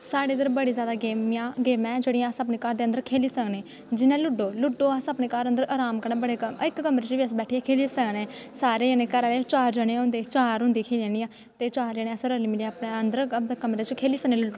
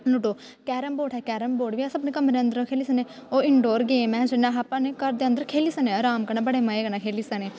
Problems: constant background noise